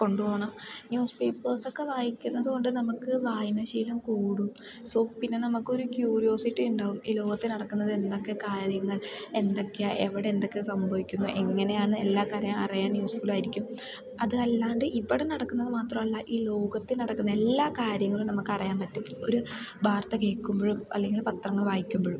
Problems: low volume